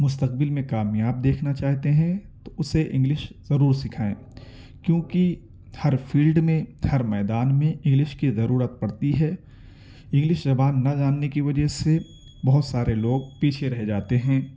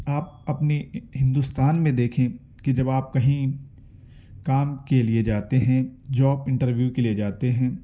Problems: background sounds at intervals